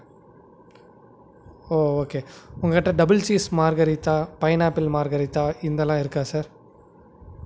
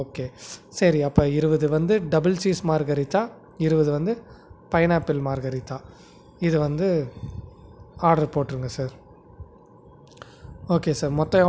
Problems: none marked